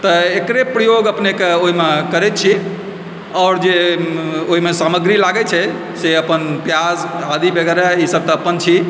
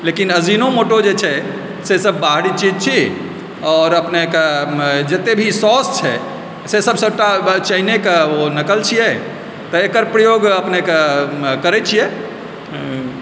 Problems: constant background noise